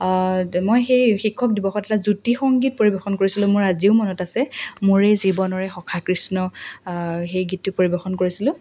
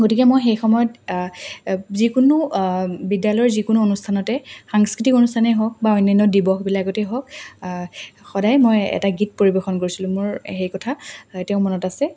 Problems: none marked